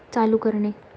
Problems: none marked